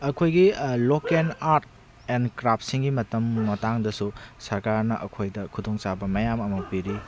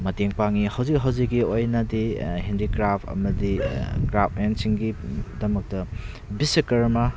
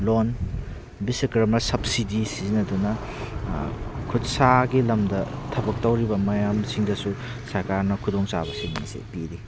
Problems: background sounds at intervals